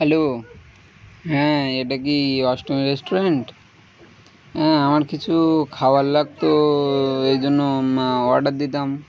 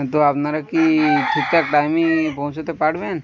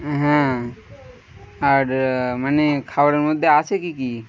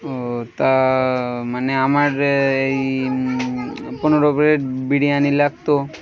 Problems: none marked